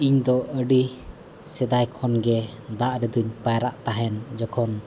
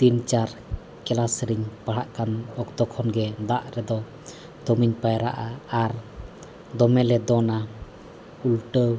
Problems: none marked